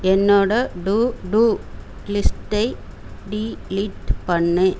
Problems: constant background noise